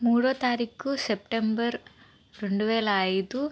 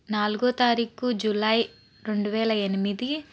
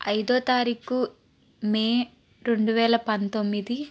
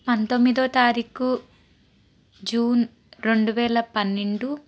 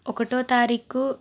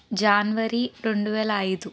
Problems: constant background noise